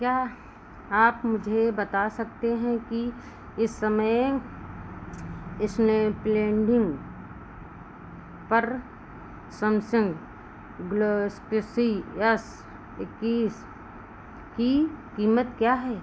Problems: constant background noise